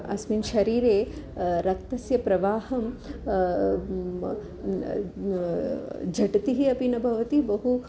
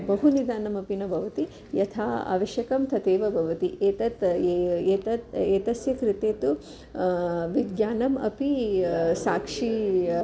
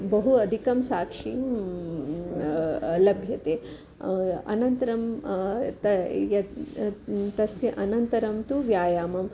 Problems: background sounds at intervals